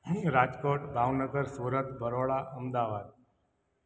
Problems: background sounds at intervals, echo